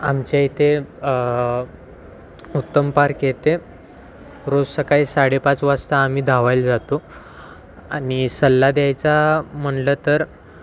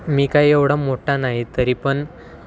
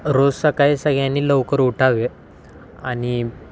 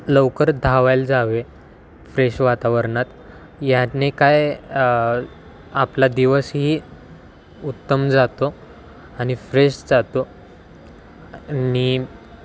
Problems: constant background noise, continuous background conversations